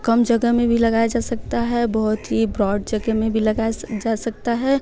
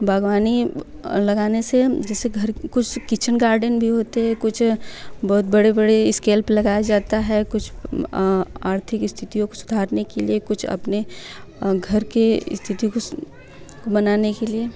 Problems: none marked